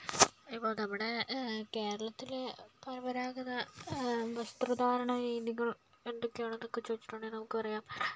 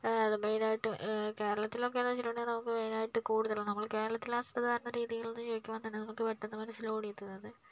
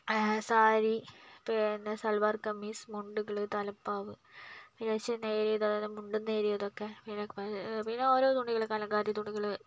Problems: low volume